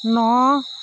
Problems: none marked